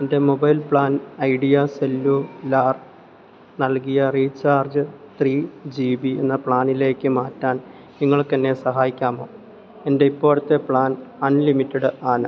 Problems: low volume